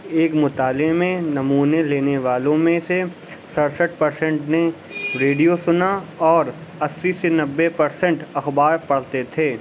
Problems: constant background noise, background conversations at intervals